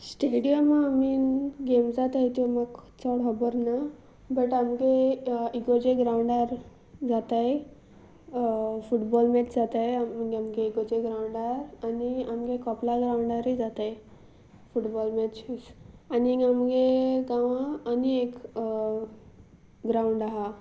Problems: background sounds at intervals